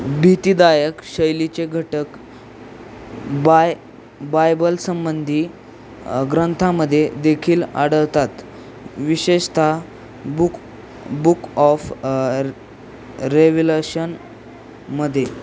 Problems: none marked